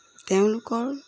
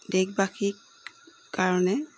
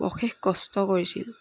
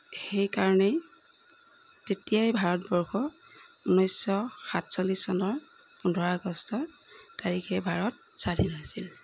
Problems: background sounds at intervals